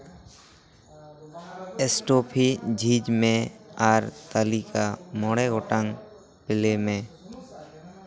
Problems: continuous background conversations